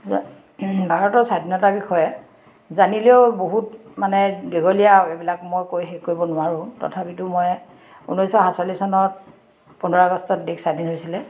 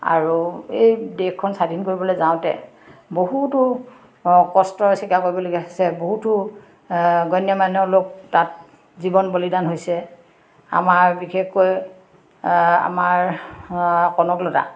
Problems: constant background noise, background conversations at intervals